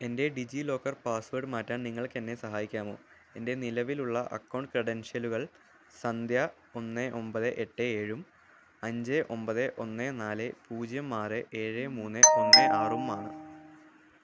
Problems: background sounds at intervals